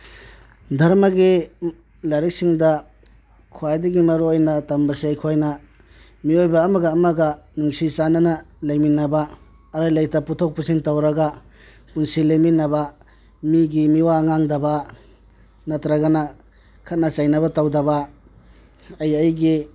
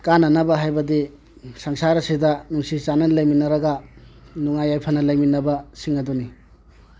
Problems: background sounds at intervals